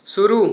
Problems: constant background noise